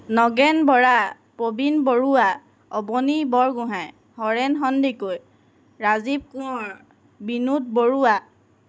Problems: constant background noise